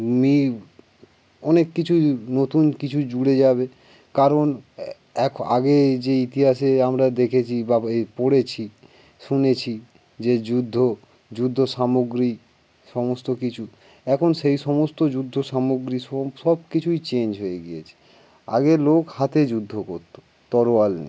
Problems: background sounds at intervals